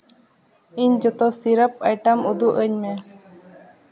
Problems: echo